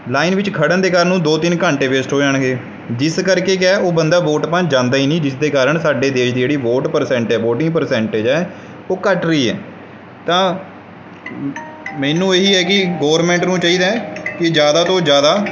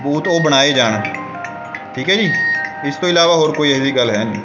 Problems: background sounds at intervals